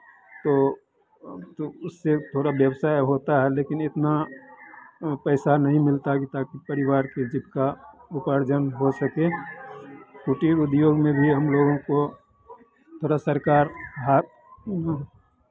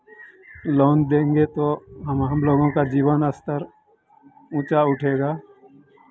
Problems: constant background noise